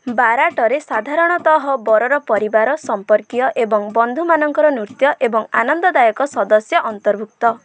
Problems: background sounds at intervals